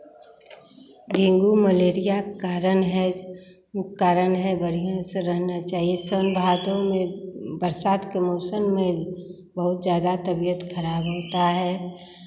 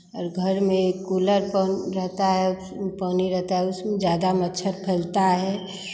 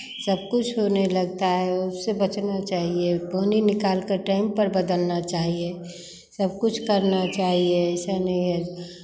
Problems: background sounds at intervals